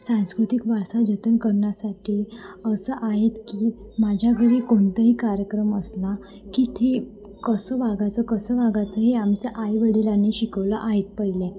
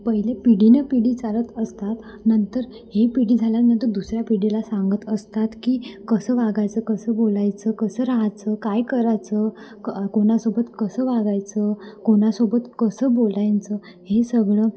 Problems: constant background noise, background conversations at intervals, echo, low volume